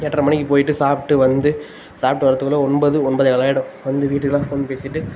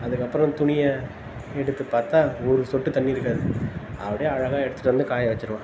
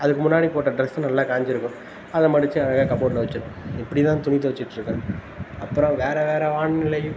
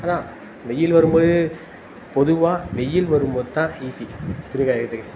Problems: constant background noise